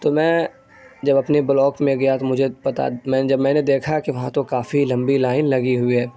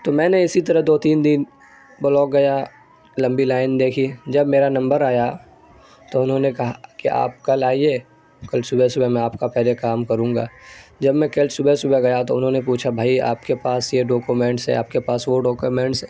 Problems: constant background noise